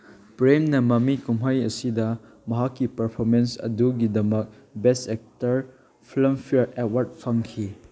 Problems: none marked